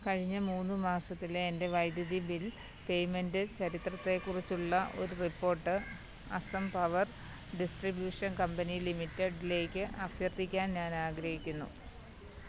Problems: background sounds at intervals, low volume